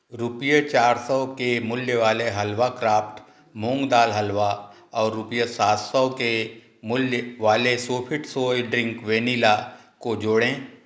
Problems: none marked